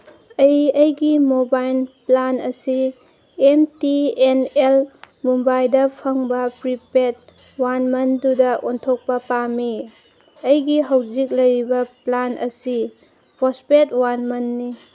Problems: background sounds at intervals